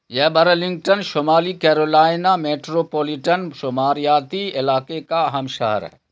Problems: constant background noise